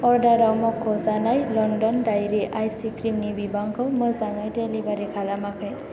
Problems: low volume